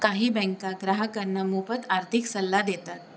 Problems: constant background noise